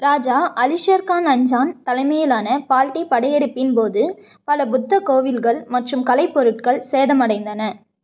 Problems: none marked